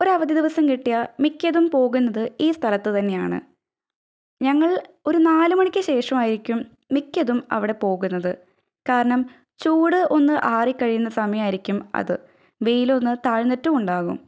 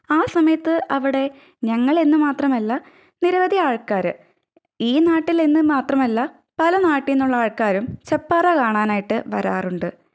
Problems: none marked